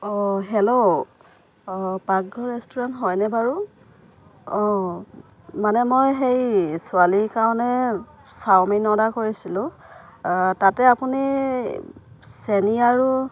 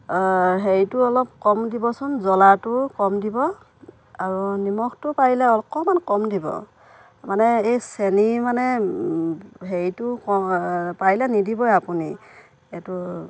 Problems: constant background noise